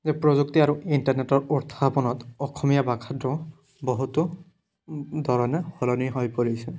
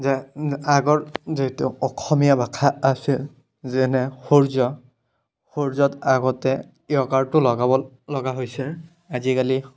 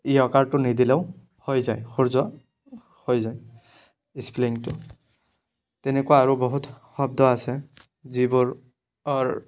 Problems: background sounds at intervals